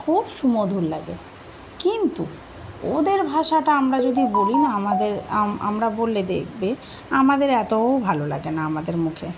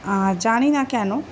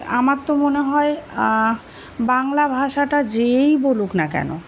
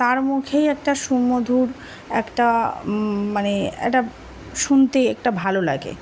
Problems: constant background noise